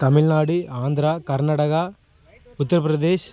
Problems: constant background noise